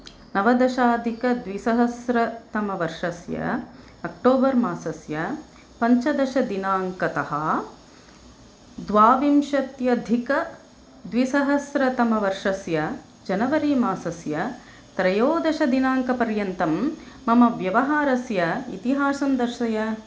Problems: constant background noise